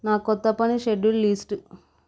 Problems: none marked